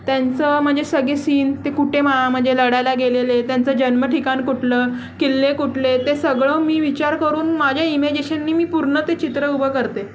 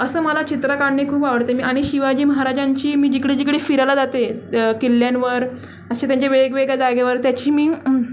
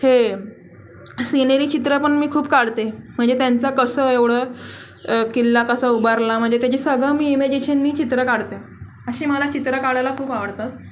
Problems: constant background noise, background conversations at intervals